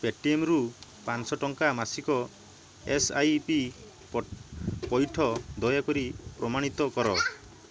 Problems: background sounds at intervals